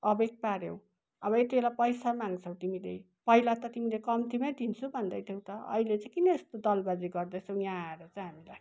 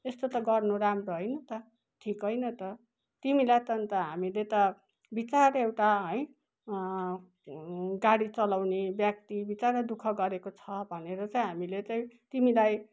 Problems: none marked